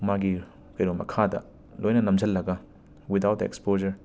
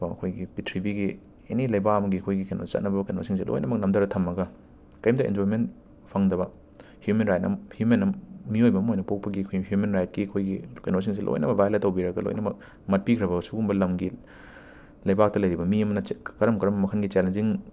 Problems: constant background noise